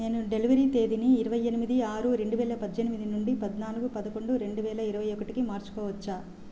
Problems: constant background noise